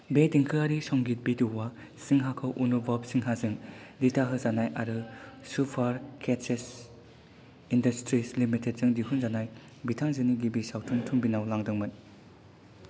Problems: low volume